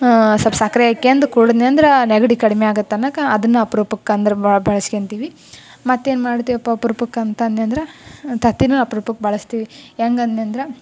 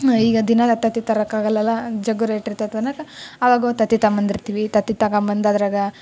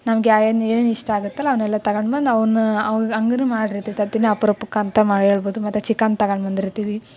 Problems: none marked